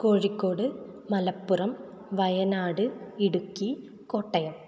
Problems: none marked